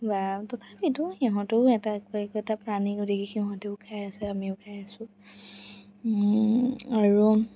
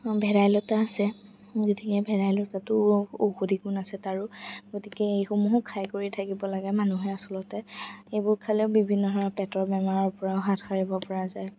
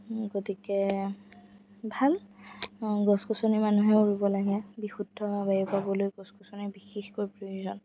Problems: background sounds at intervals, background conversations at intervals